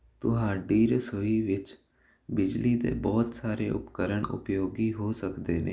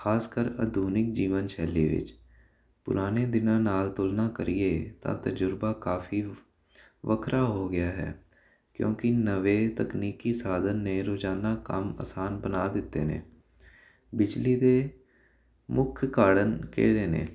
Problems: none marked